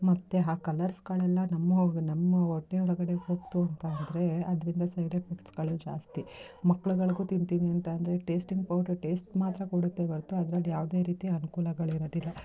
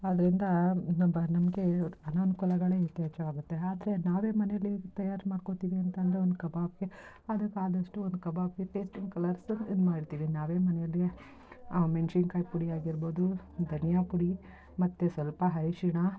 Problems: background conversations at intervals